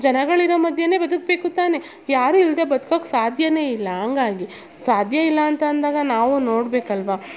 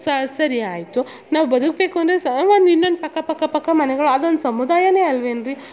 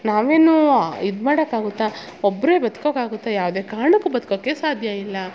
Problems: none marked